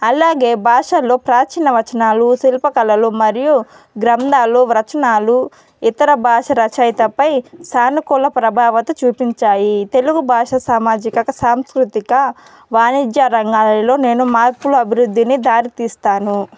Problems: background sounds at intervals, background conversations at intervals